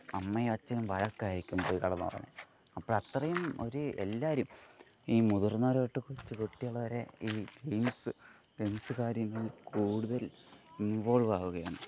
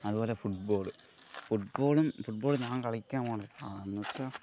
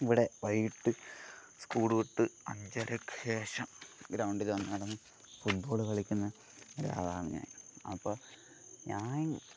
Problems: constant background noise, low volume